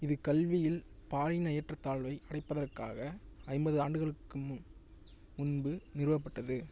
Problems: low volume